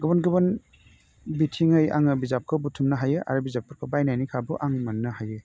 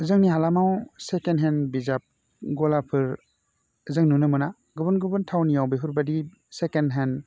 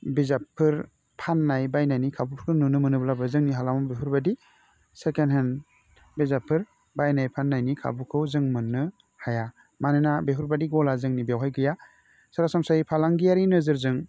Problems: none marked